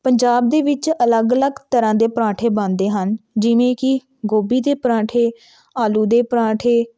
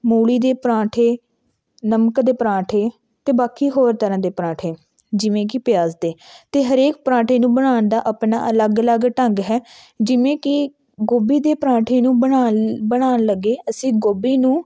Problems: background sounds at intervals